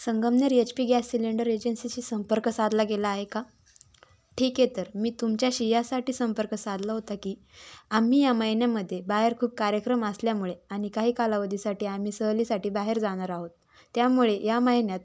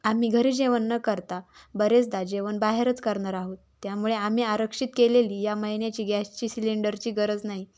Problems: background sounds at intervals